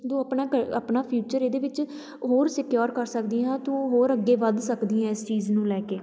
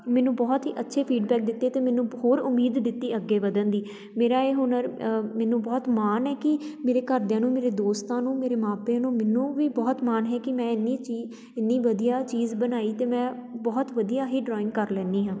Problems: background sounds at intervals, continuous background conversations